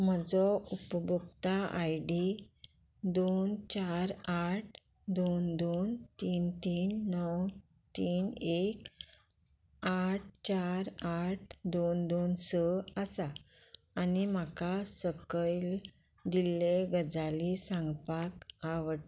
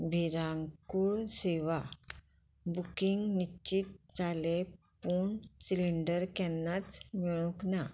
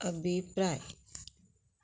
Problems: constant background noise